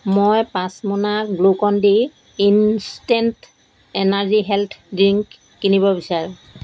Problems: none marked